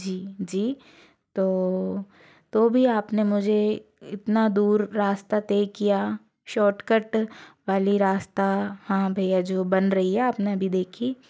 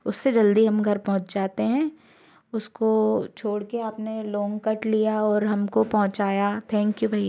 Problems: constant background noise